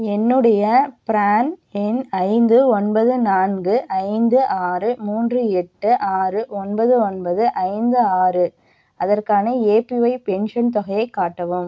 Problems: none marked